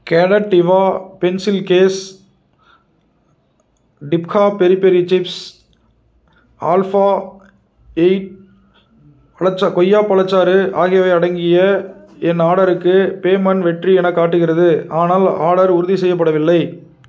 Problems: none marked